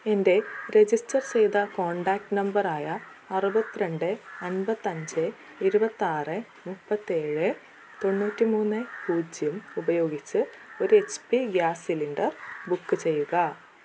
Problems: constant background noise, low volume